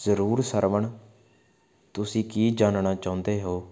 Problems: background sounds at intervals